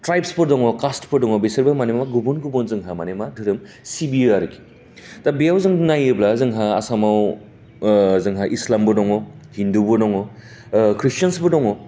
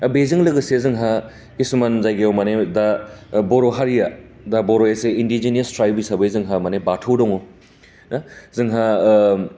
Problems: constant background noise